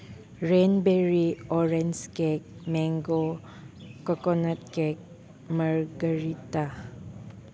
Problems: background sounds at intervals